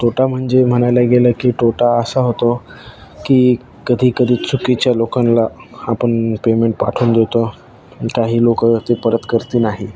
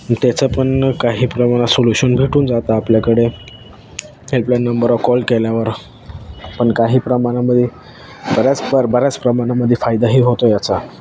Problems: none marked